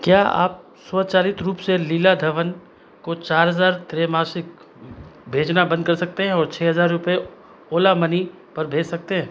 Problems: none marked